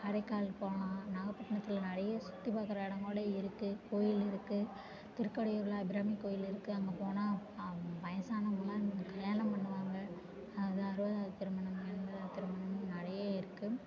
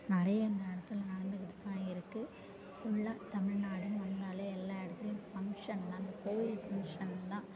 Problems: constant background noise, background conversations at intervals